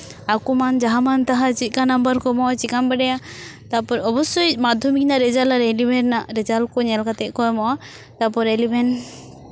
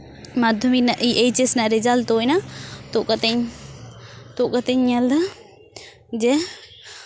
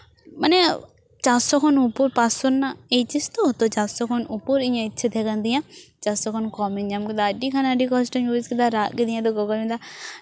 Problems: none marked